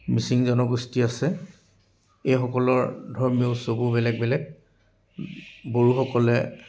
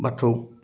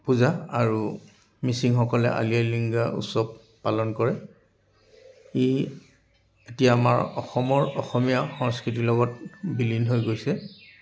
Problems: background sounds at intervals